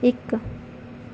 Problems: background sounds at intervals